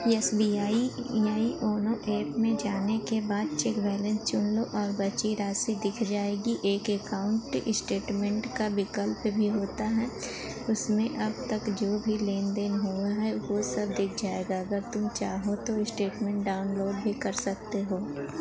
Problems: none marked